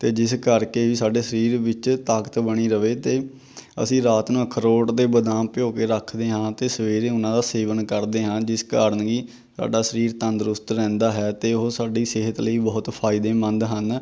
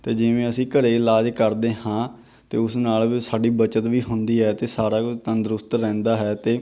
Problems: none marked